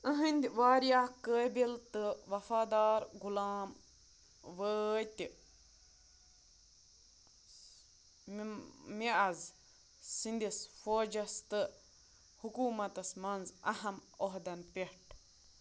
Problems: constant background noise